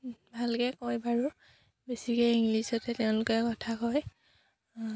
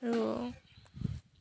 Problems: none marked